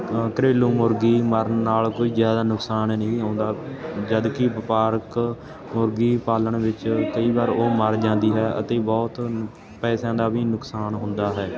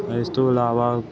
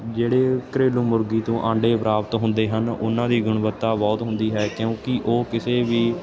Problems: none marked